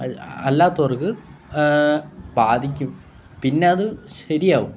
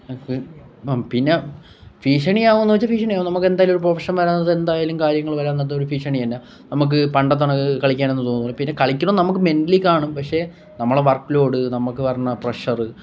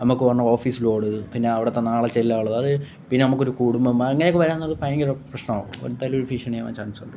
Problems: none marked